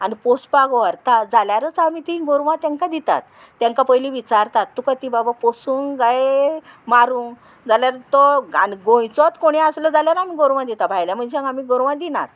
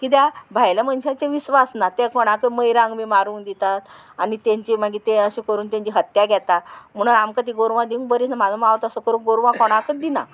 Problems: constant background noise